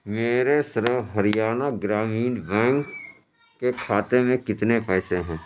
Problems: constant background noise, continuous background conversations